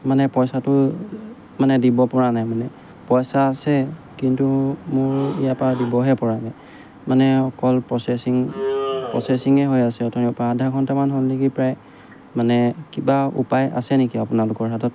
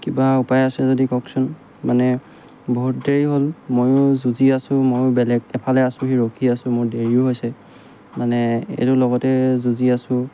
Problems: background sounds at intervals